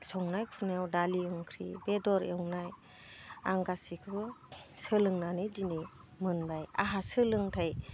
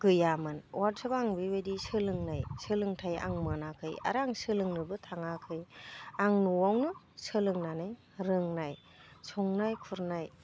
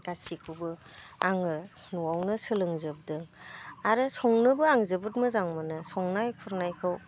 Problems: none marked